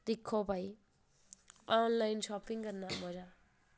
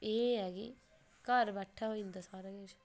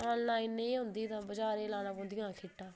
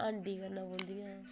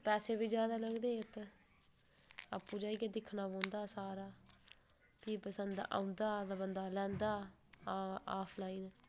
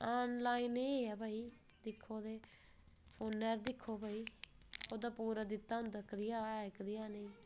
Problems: none marked